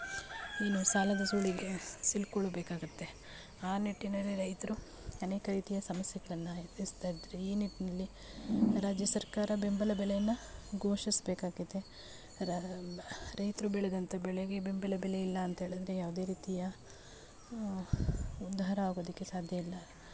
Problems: background sounds at intervals, low volume